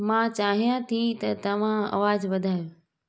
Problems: none marked